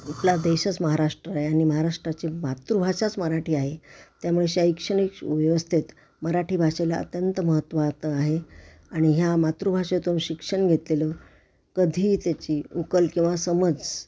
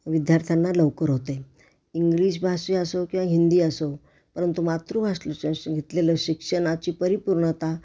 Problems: background sounds at intervals